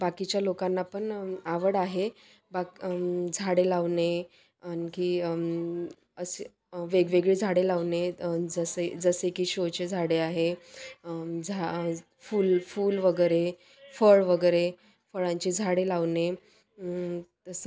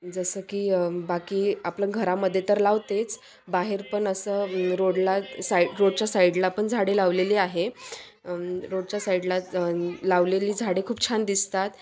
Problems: constant background noise, continuous background conversations